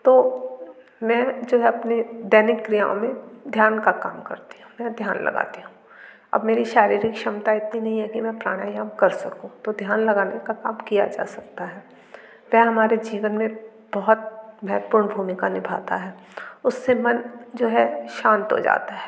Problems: none marked